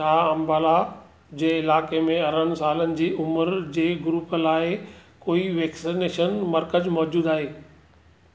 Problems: none marked